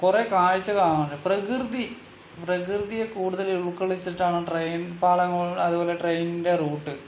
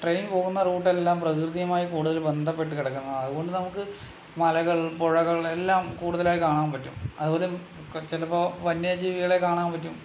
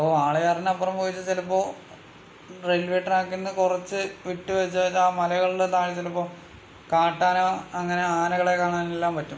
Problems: none marked